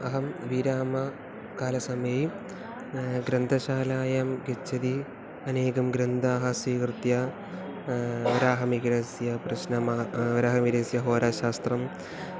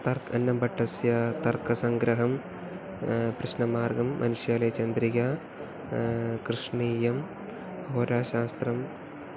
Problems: background sounds at intervals